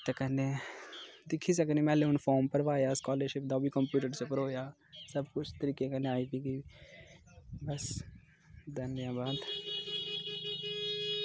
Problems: none marked